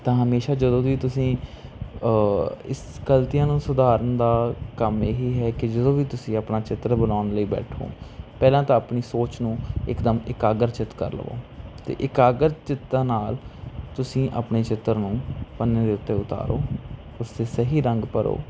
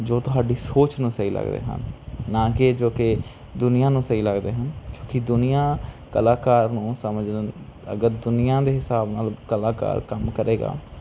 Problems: constant background noise